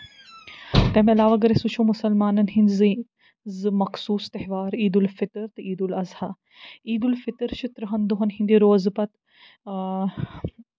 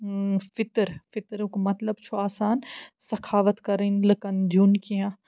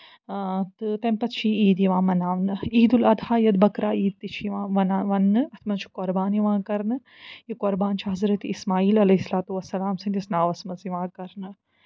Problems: none marked